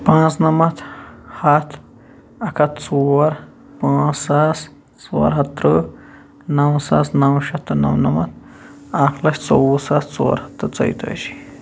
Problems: background sounds at intervals